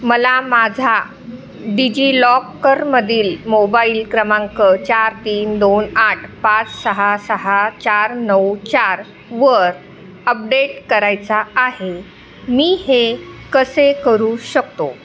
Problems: constant background noise, continuous background conversations